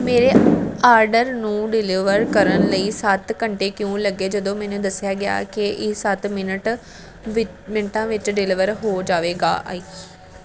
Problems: constant background noise